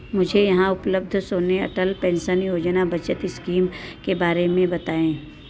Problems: constant background noise